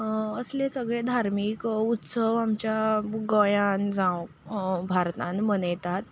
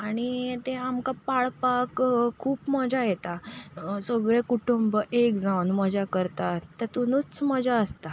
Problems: none marked